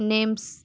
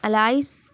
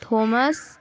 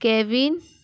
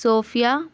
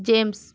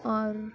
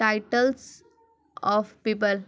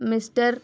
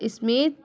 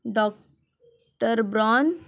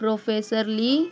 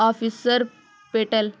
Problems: constant background noise, background conversations at intervals